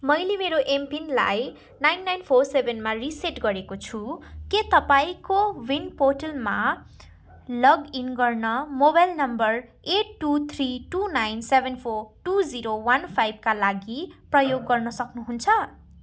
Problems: background sounds at intervals